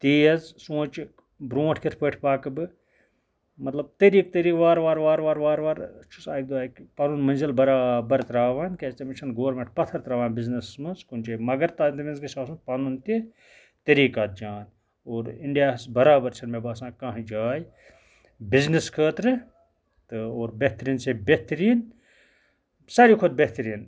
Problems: background sounds at intervals, background conversations at intervals